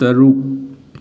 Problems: none marked